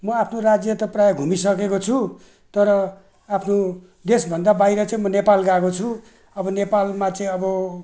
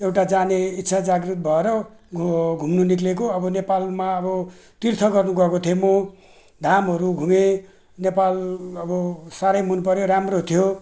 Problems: none marked